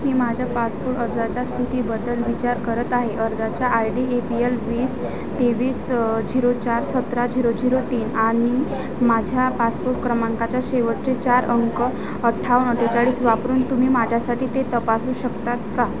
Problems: none marked